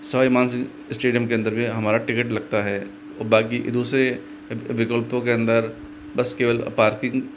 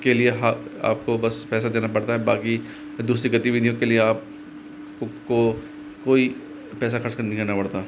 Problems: constant background noise